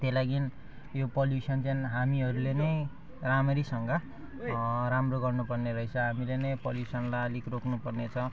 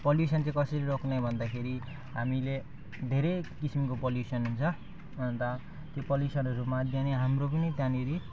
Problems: background sounds at intervals